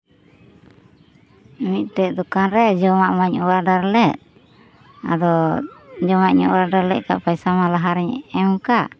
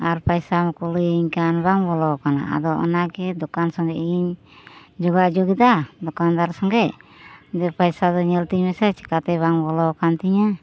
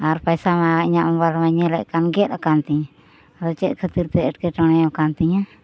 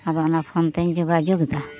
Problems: background sounds at intervals